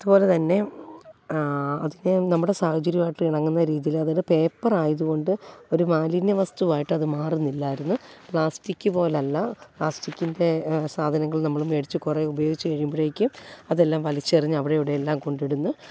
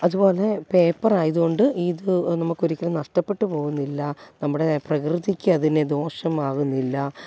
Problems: low volume